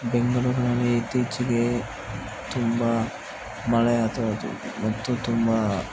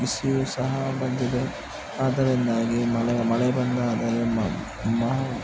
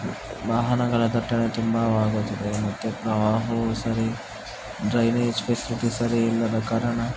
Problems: constant background noise